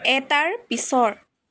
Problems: constant background noise, background conversations at intervals